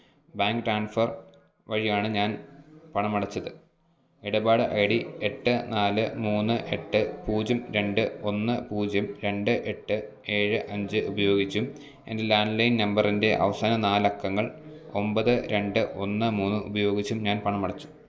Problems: none marked